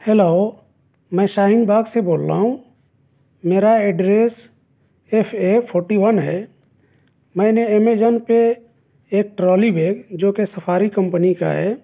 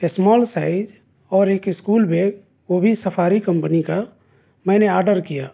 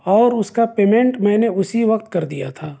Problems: none marked